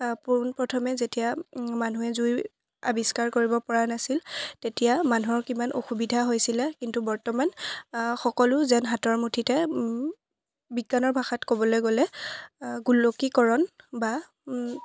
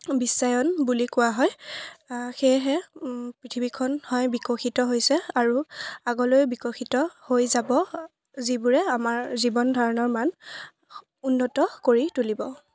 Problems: background conversations at intervals